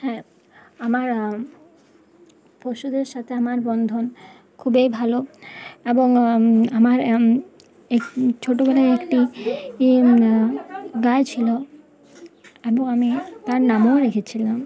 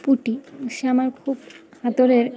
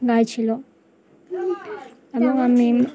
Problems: constant background noise, continuous background conversations